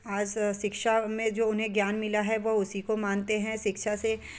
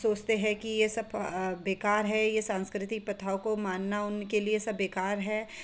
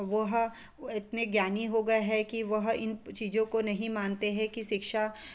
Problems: background sounds at intervals